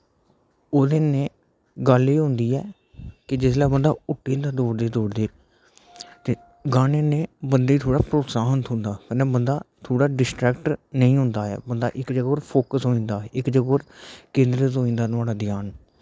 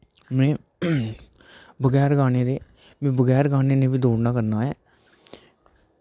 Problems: none marked